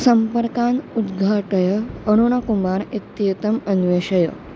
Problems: constant background noise